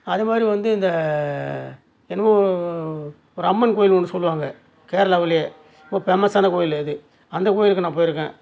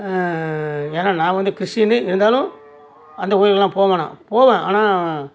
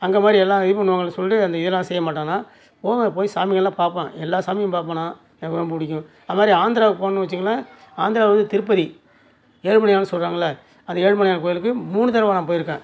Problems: none marked